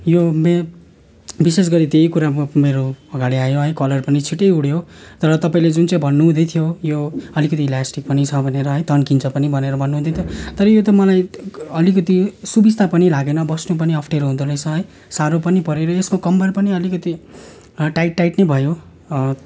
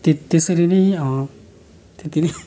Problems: constant background noise, continuous background conversations